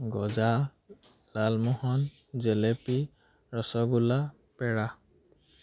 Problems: none marked